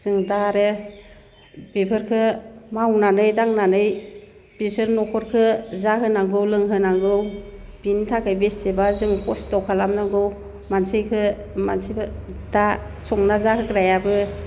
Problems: none marked